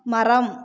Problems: continuous background conversations